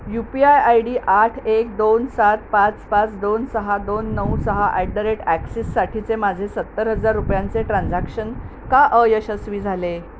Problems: constant background noise